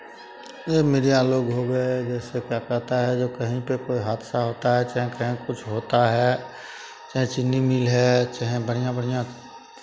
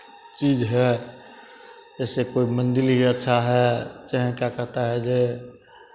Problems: constant background noise, continuous background conversations